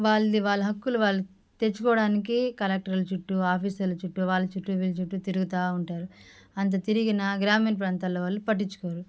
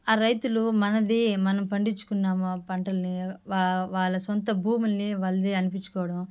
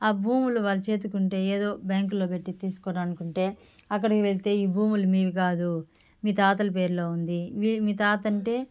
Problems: background sounds at intervals